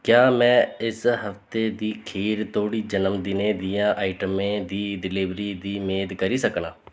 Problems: none marked